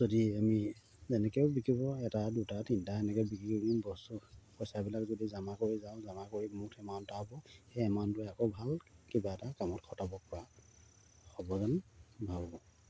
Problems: low volume